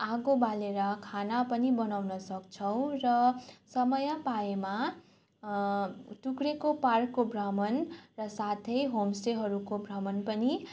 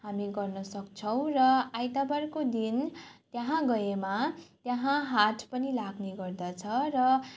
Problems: none marked